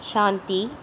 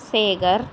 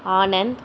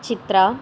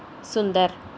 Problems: none marked